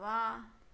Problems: constant background noise, echo